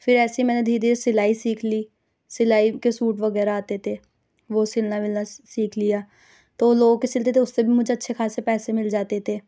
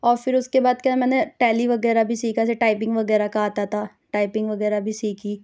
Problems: none marked